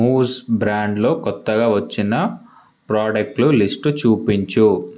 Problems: none marked